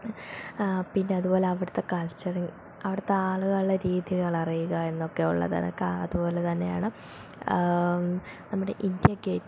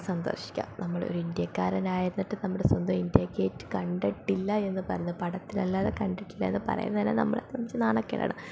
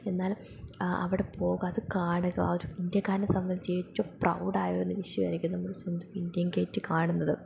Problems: none marked